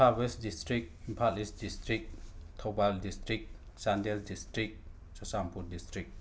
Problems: none marked